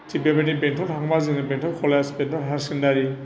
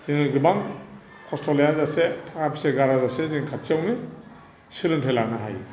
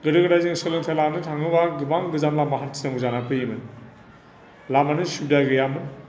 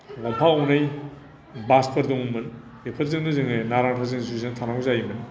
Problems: constant background noise